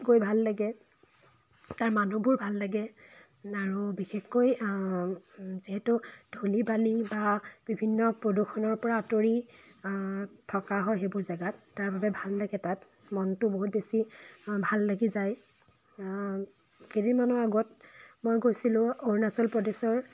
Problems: background sounds at intervals